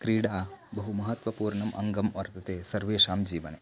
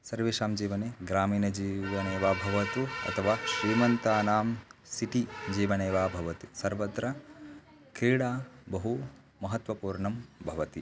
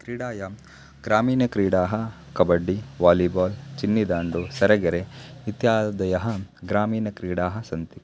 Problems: constant background noise